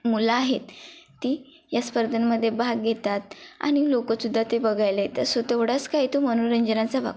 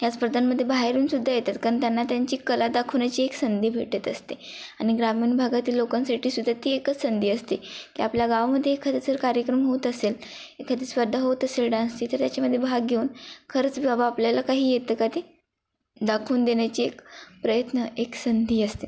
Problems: constant background noise